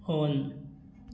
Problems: constant background noise